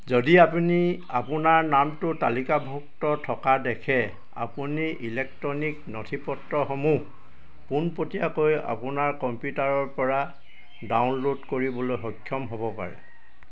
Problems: constant background noise